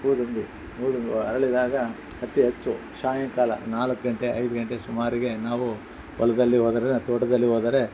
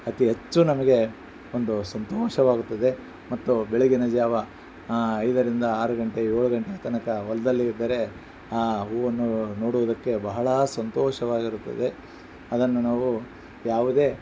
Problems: background sounds at intervals